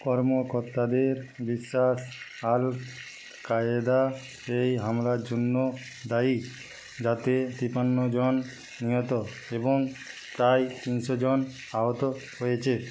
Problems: none marked